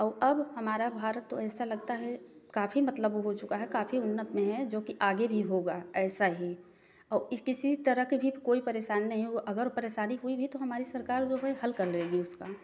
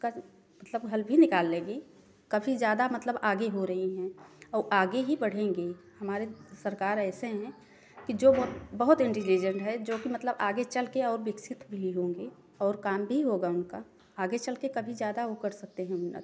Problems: background sounds at intervals